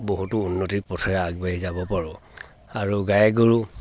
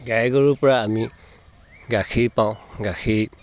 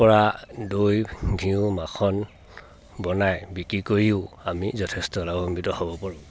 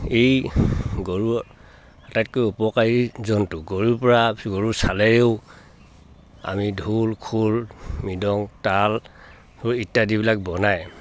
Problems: background sounds at intervals